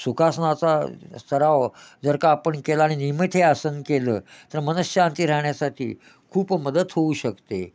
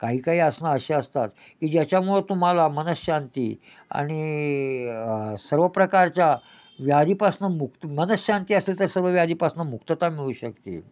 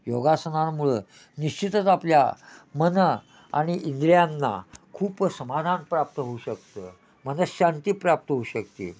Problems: none marked